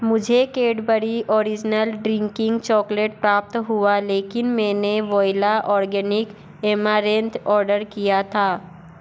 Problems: none marked